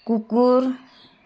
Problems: background sounds at intervals